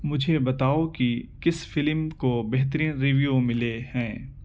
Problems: constant background noise